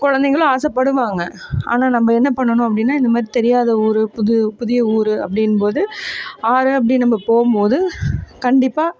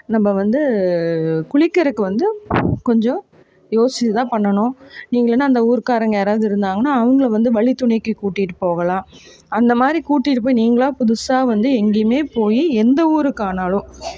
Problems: constant background noise